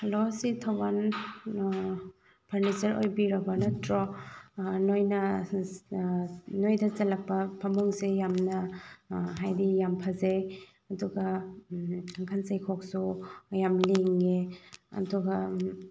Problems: background sounds at intervals, low volume